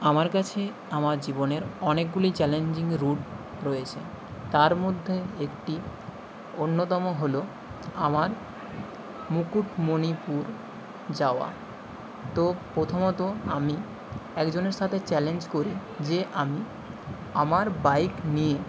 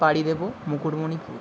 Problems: background sounds at intervals